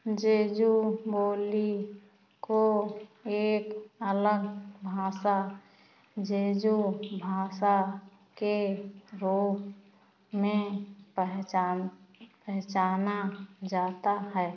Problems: constant background noise